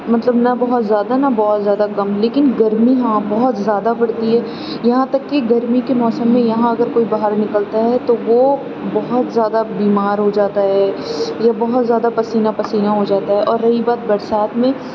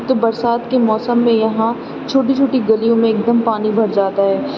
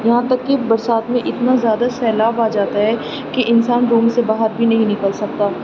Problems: constant background noise